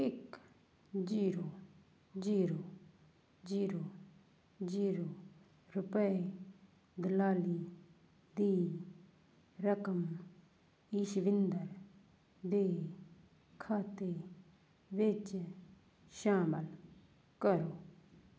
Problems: constant background noise